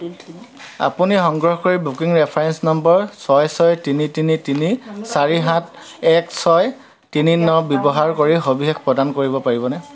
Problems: constant background noise, continuous background conversations